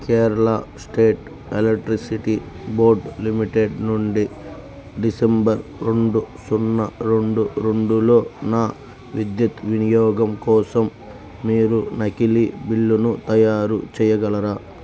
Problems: constant background noise